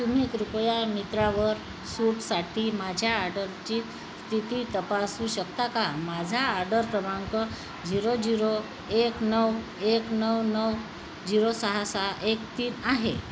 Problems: constant background noise